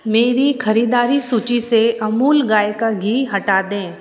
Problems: none marked